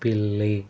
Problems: constant background noise